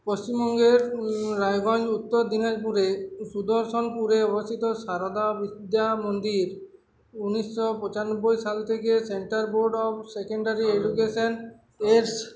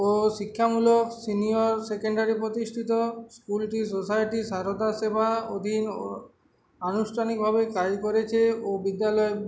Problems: constant background noise, continuous background conversations